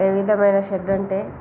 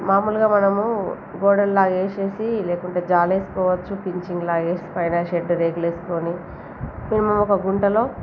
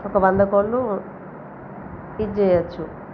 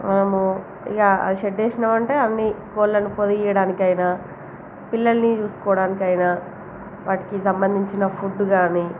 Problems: constant background noise, background conversations at intervals